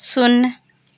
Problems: background sounds at intervals